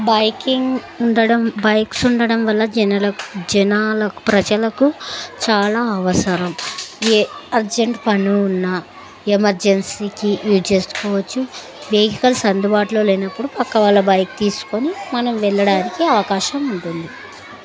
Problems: continuous background conversations